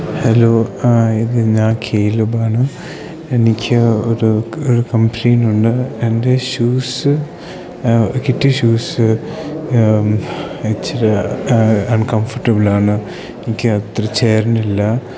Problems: low volume